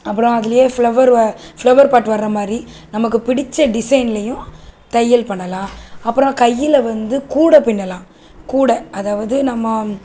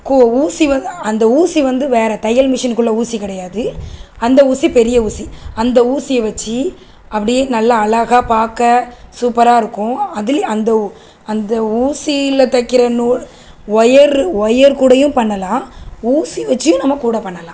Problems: constant background noise